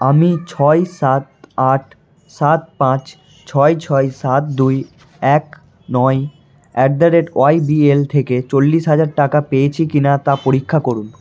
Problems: constant background noise